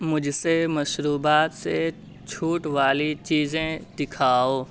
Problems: constant background noise